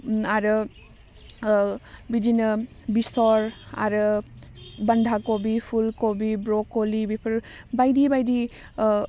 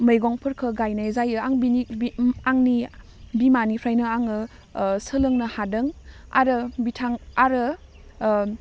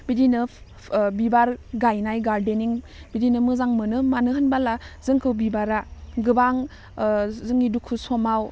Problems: none marked